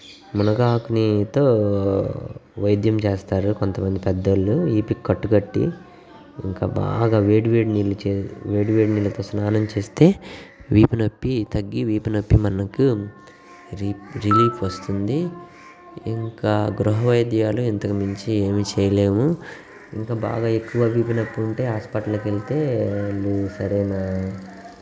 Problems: none marked